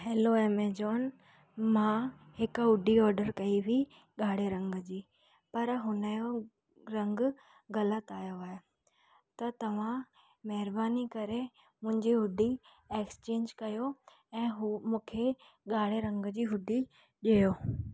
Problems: background sounds at intervals